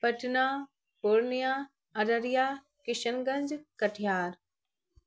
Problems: constant background noise